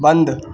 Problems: constant background noise